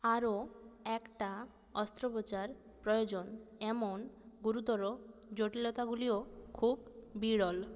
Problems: none marked